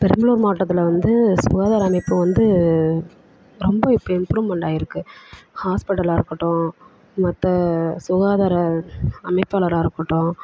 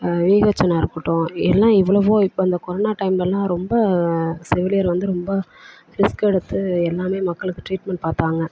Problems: constant background noise